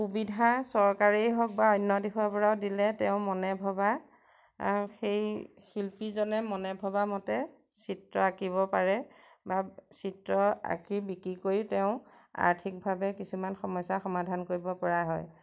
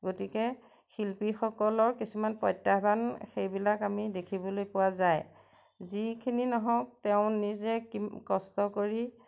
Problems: none marked